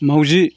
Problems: none marked